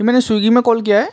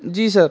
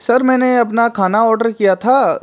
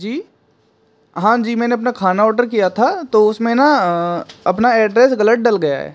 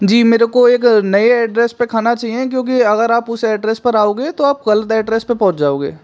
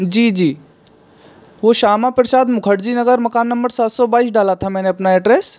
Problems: constant background noise